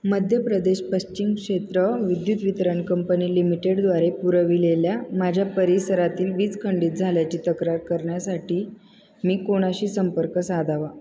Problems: none marked